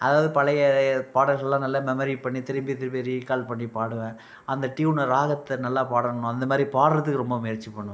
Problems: none marked